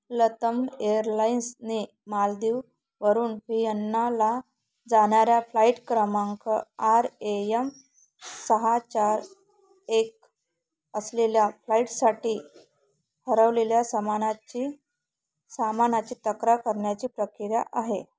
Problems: background sounds at intervals